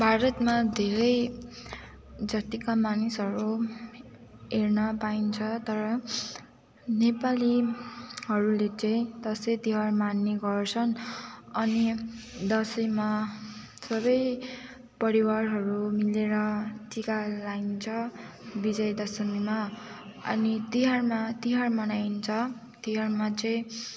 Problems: none marked